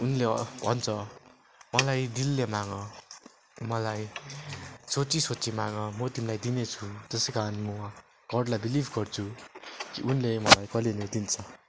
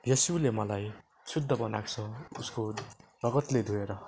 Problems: background sounds at intervals